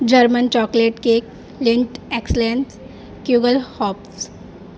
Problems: constant background noise